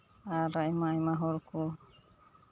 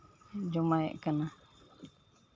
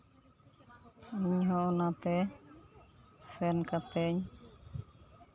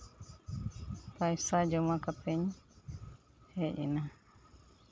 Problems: constant background noise, background conversations at intervals